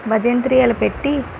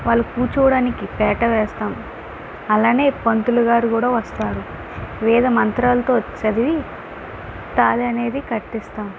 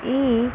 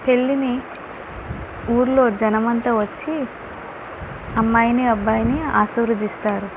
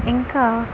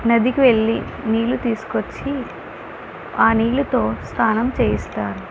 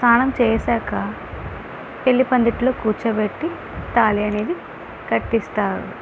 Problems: constant background noise